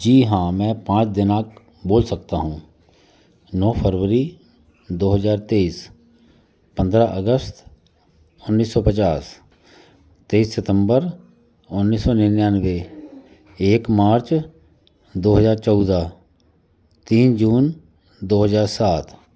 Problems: constant background noise, continuous background conversations